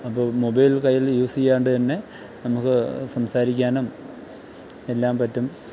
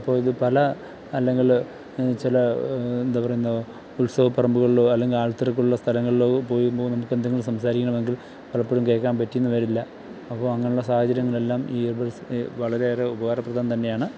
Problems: none marked